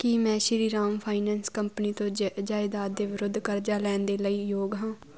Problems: constant background noise